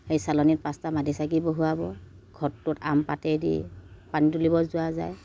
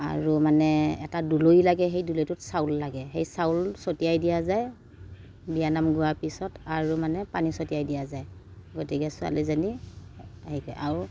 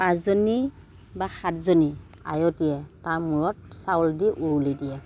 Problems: none marked